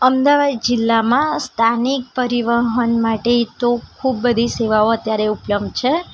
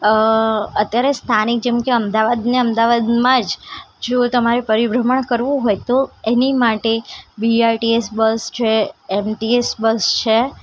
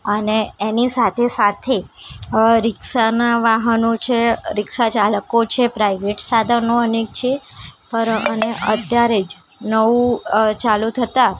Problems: constant background noise